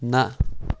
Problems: constant background noise